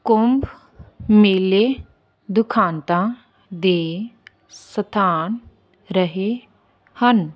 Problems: constant background noise